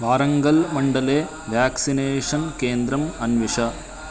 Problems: constant background noise, continuous background conversations